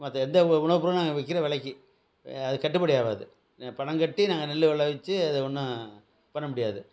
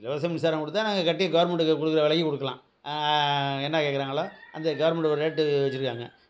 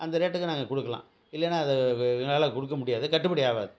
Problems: none marked